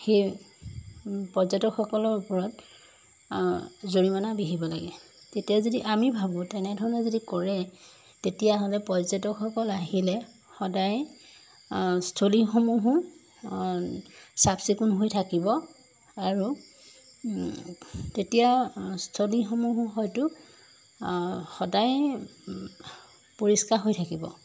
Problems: none marked